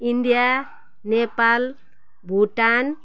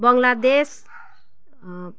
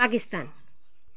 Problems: background sounds at intervals